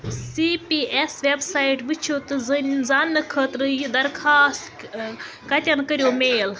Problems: constant background noise, continuous background conversations